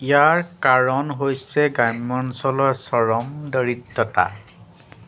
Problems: none marked